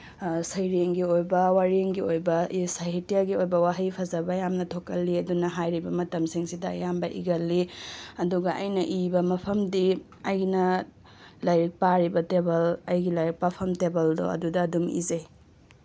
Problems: none marked